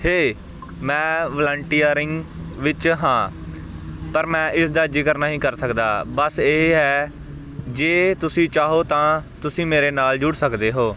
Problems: constant background noise